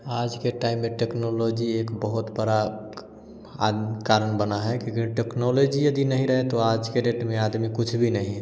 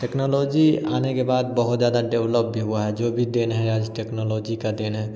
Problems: none marked